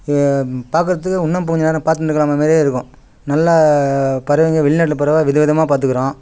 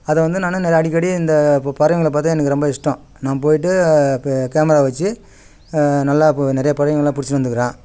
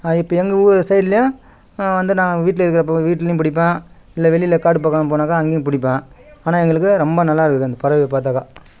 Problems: none marked